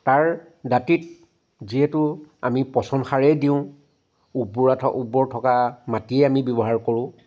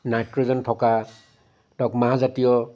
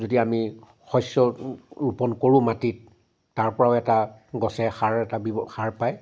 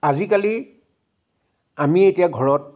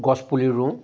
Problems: background sounds at intervals